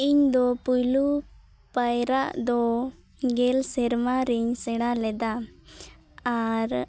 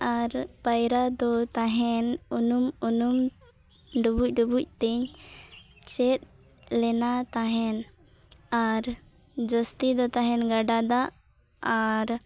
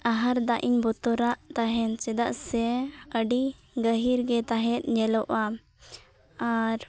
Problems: none marked